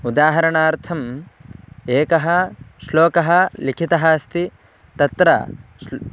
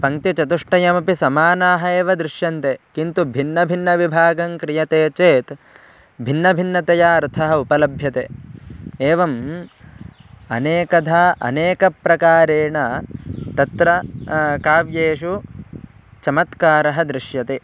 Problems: constant background noise